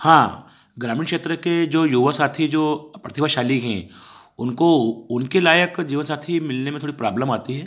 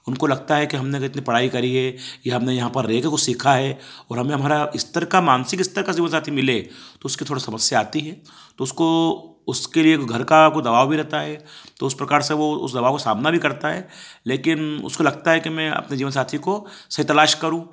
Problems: background sounds at intervals